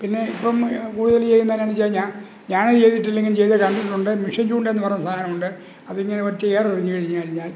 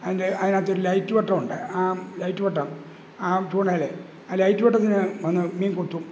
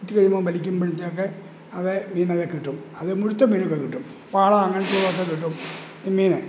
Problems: background sounds at intervals